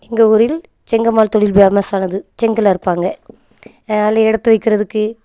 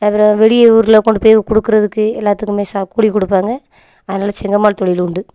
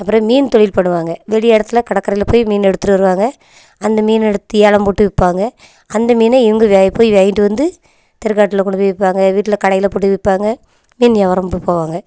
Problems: none marked